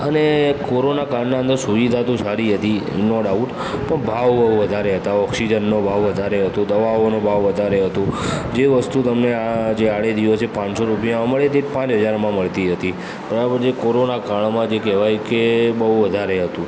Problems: constant background noise